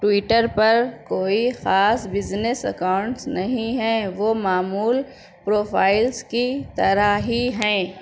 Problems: none marked